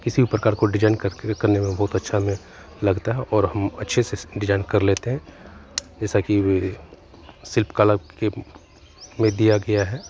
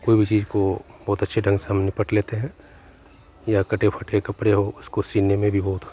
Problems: constant background noise, continuous background conversations